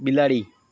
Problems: constant background noise